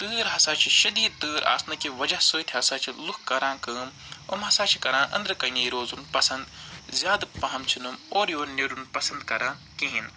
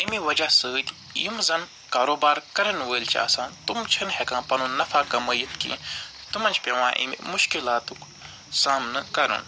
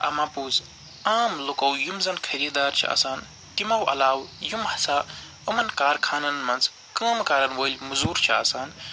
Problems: constant background noise, background conversations at intervals